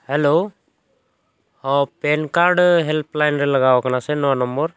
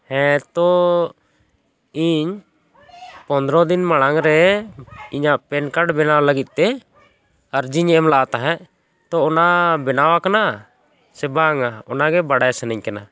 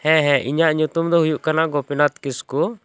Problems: none marked